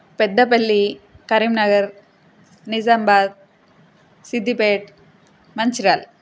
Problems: constant background noise